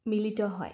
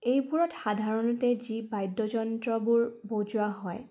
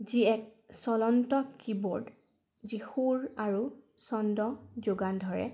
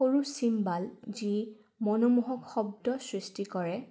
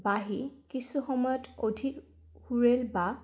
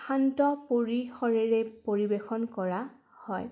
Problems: background sounds at intervals